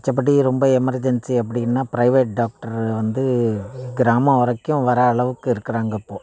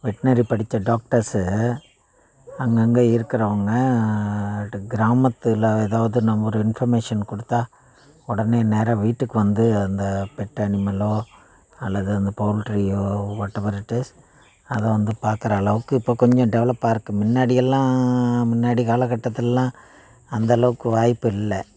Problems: constant background noise